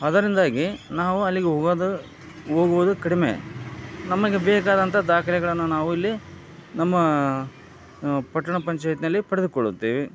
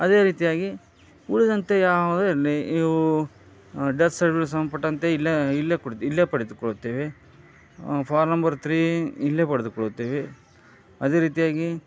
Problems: none marked